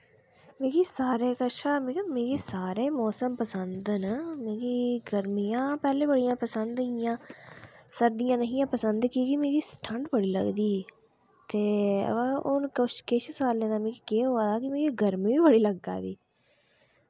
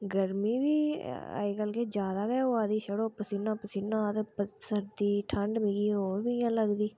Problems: none marked